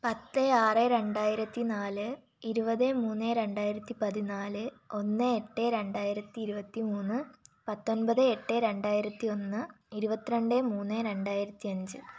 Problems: low volume